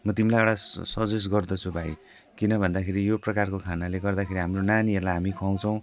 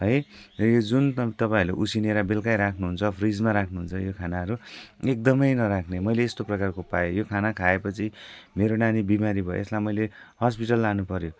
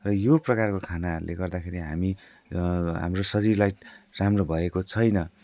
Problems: constant background noise